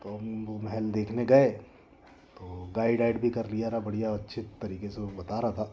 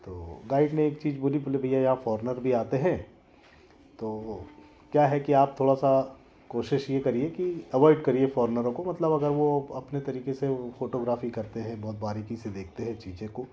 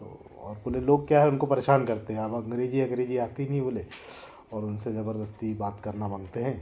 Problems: none marked